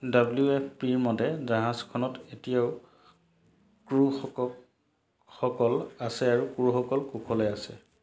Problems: none marked